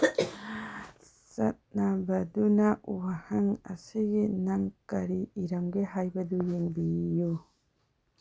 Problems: low volume